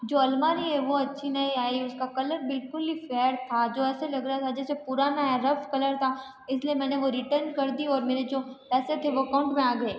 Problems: background sounds at intervals, background conversations at intervals